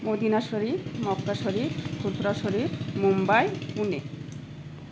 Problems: none marked